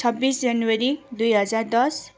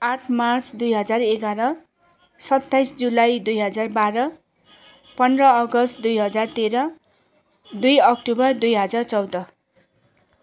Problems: constant background noise, continuous background conversations